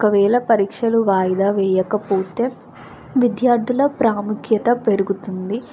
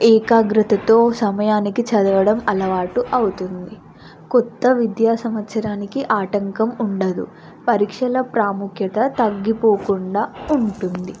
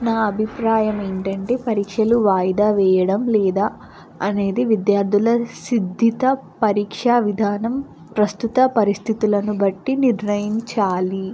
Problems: constant background noise